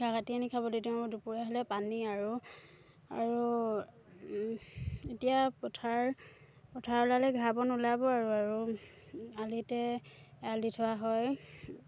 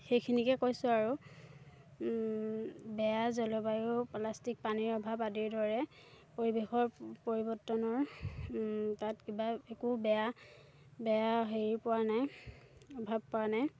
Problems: none marked